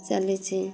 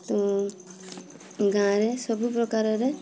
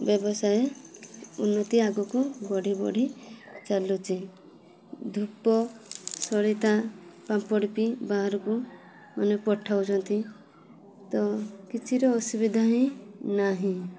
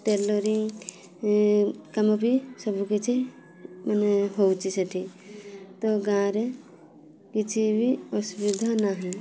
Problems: constant background noise, continuous background conversations